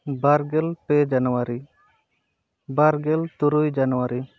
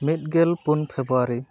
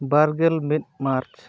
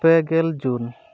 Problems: background sounds at intervals